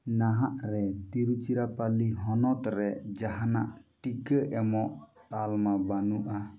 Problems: background sounds at intervals